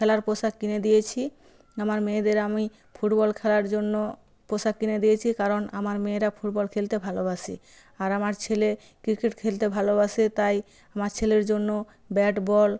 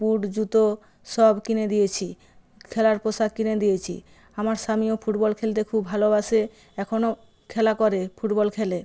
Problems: background sounds at intervals